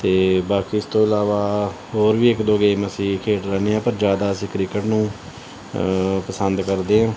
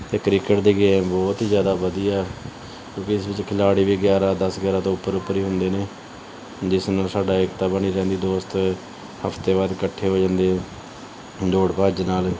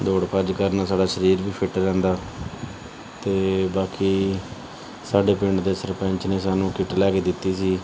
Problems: background sounds at intervals, background conversations at intervals